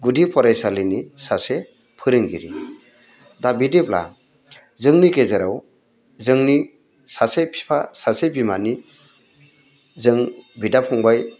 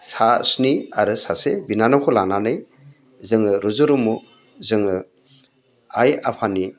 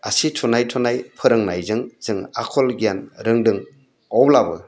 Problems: constant background noise